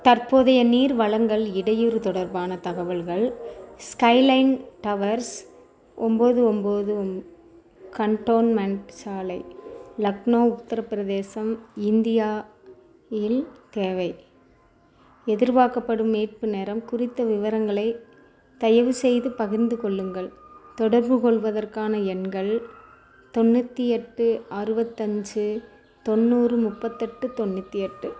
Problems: background sounds at intervals